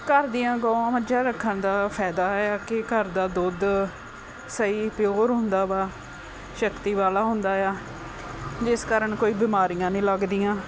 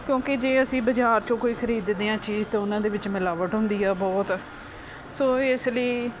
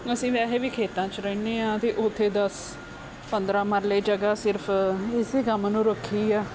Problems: background sounds at intervals